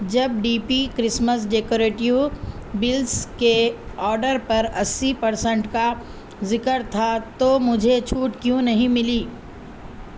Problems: constant background noise